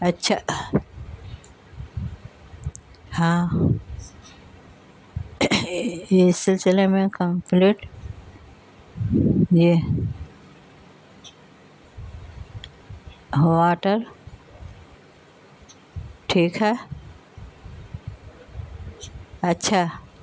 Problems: constant background noise